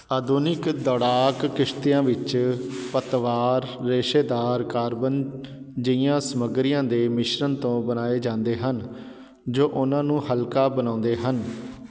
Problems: constant background noise